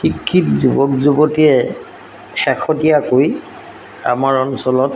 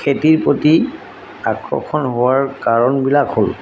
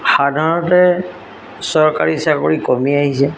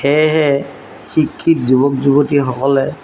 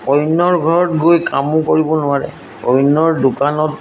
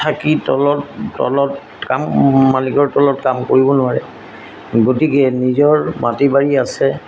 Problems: constant background noise